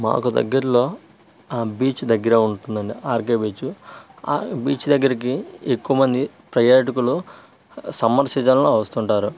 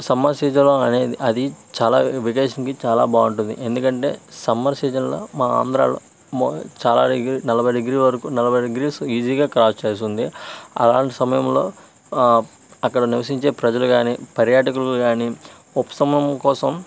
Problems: constant background noise